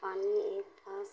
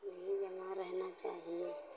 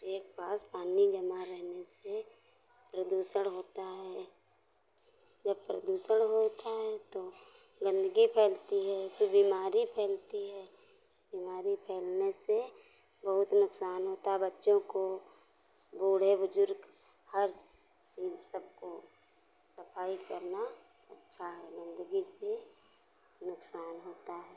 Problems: none marked